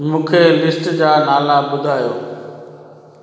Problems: constant background noise, echo